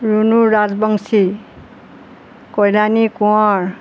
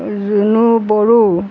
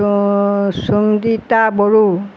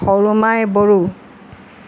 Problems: none marked